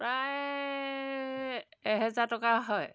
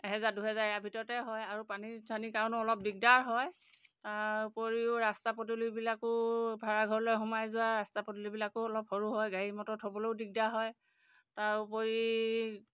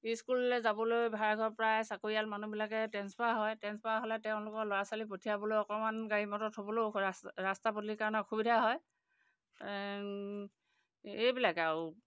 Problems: background sounds at intervals